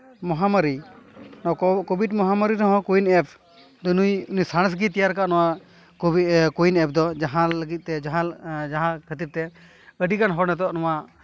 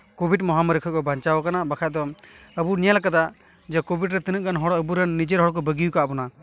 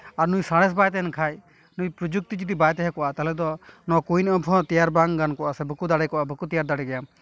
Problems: constant background noise